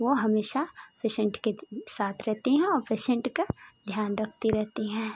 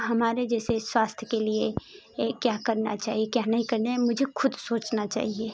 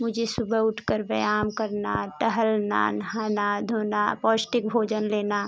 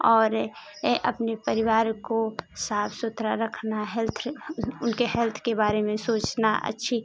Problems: constant background noise